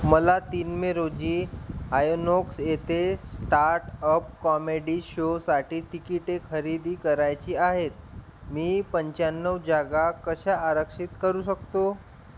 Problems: background sounds at intervals